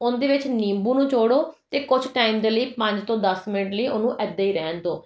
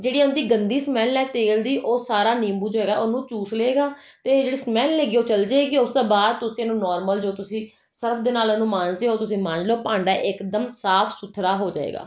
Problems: none marked